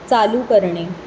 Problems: constant background noise